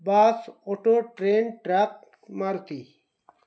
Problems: background sounds at intervals